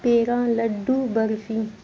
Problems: constant background noise